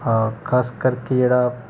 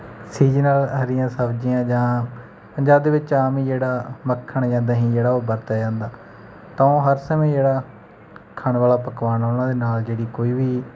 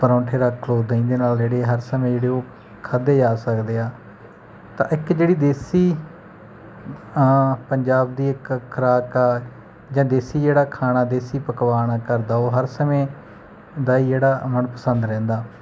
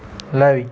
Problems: background sounds at intervals